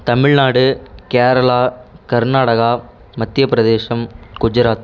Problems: constant background noise